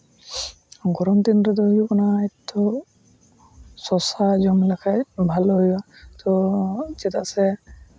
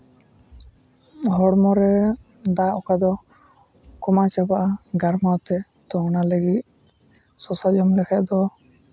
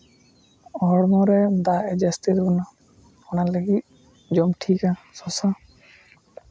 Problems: constant background noise